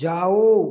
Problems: none marked